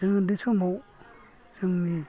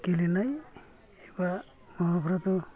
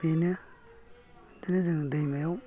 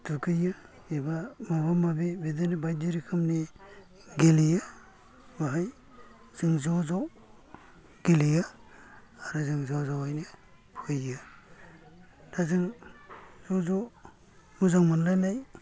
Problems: low volume